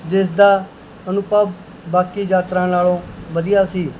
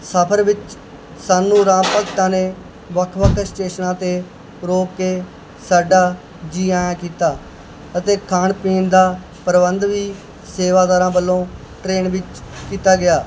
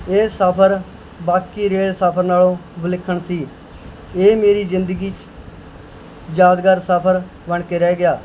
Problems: constant background noise